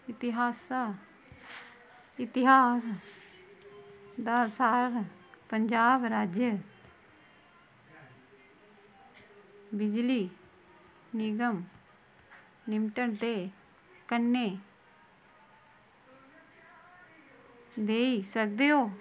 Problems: constant background noise